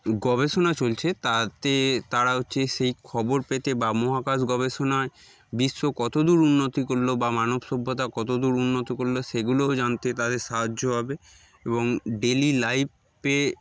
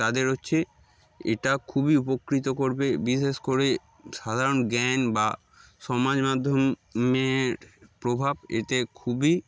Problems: background sounds at intervals, background conversations at intervals